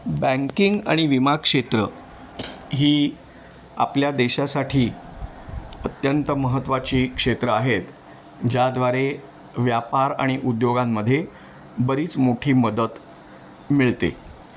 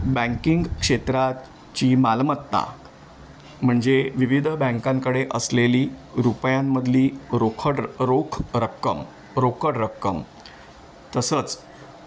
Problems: none marked